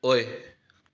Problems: background sounds at intervals